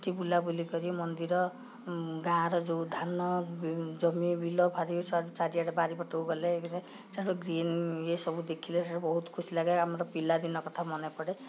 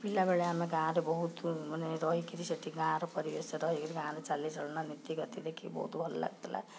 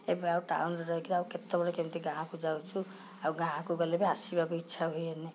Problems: background sounds at intervals